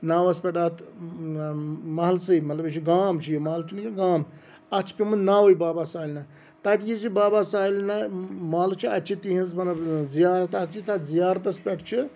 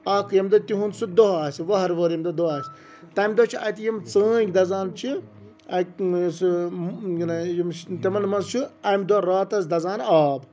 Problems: none marked